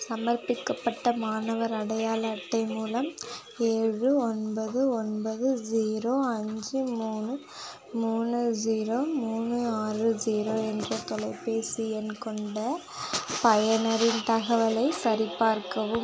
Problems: continuous background conversations